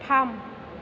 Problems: constant background noise